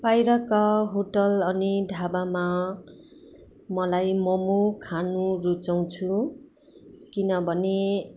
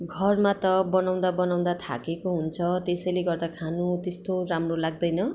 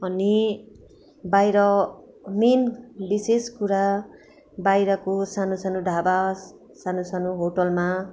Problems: none marked